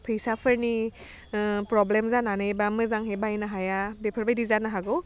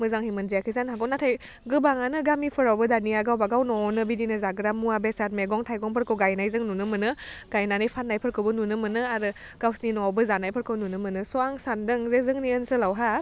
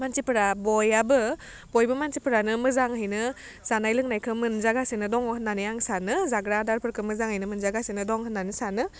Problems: none marked